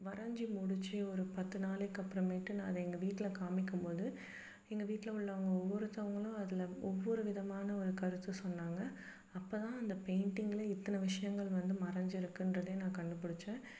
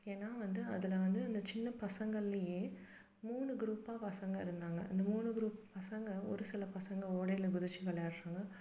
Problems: background sounds at intervals